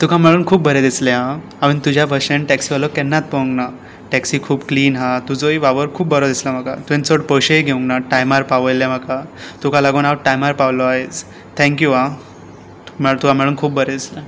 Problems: constant background noise